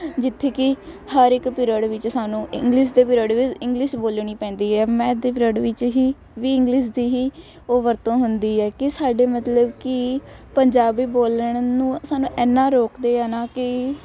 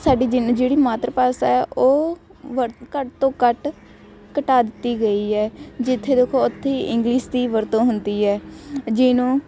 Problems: constant background noise